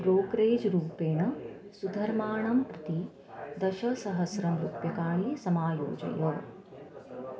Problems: continuous background conversations